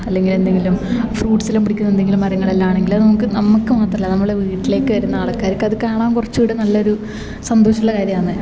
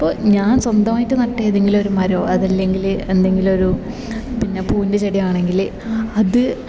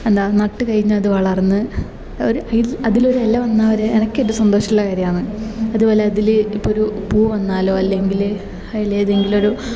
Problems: background sounds at intervals